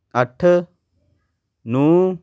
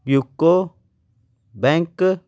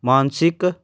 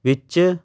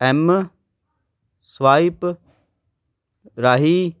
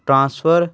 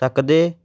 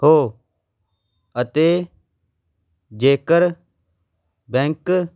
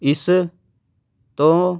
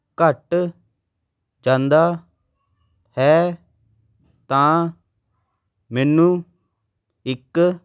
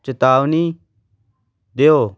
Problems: background sounds at intervals